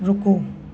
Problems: none marked